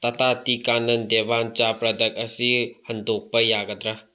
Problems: low volume